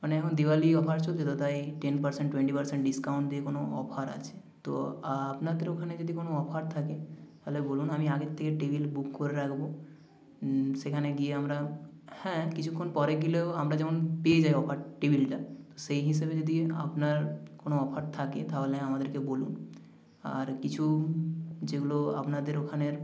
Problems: echo